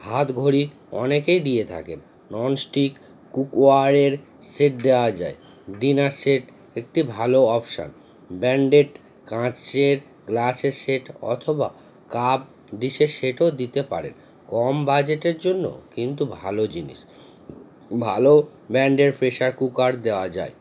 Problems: constant background noise